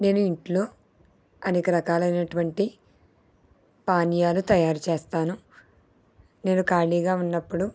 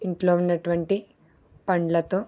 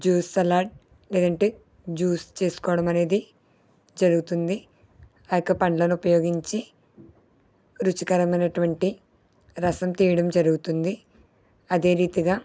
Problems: none marked